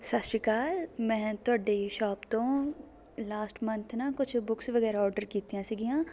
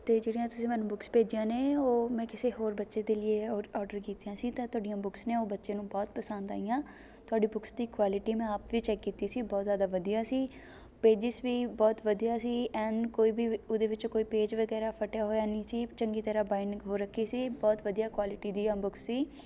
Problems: background sounds at intervals, continuous background conversations